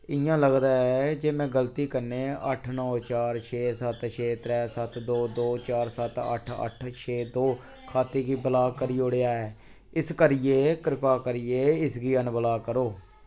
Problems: constant background noise